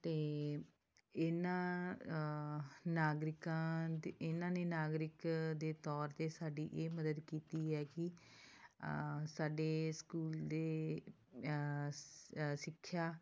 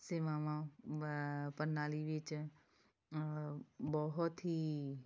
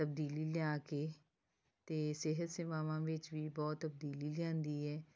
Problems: none marked